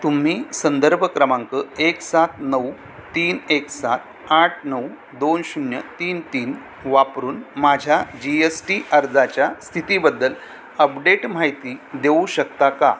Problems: constant background noise